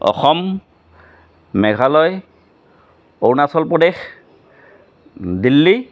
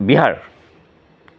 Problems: constant background noise